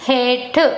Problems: none marked